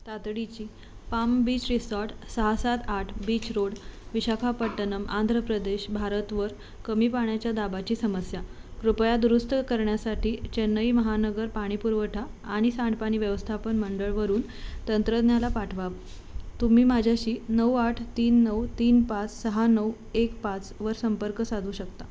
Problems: background sounds at intervals